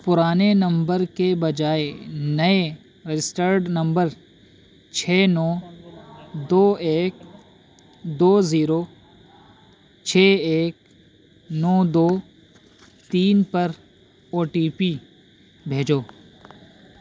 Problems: constant background noise